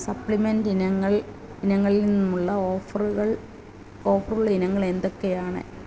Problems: constant background noise